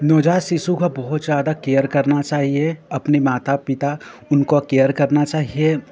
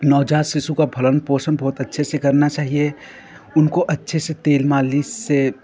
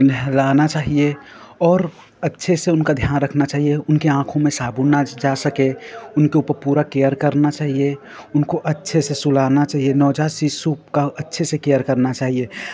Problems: background conversations at intervals